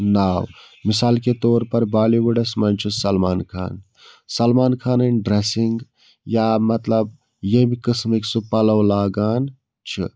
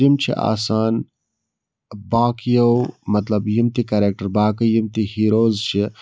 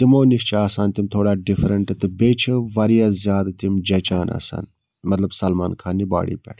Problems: none marked